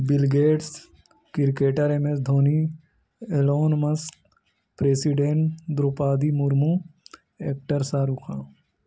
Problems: none marked